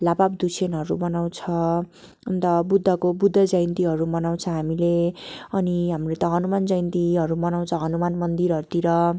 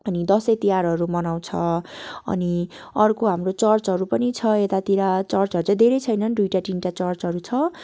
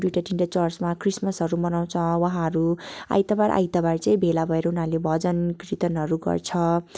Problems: background sounds at intervals